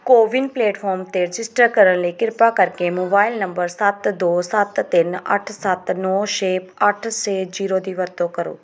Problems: background sounds at intervals